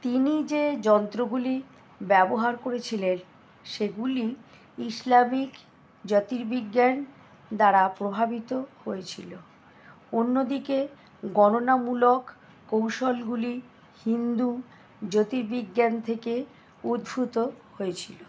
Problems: none marked